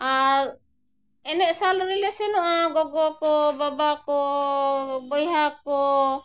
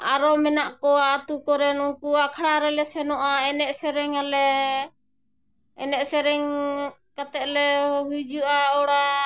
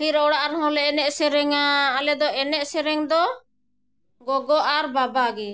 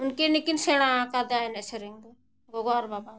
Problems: none marked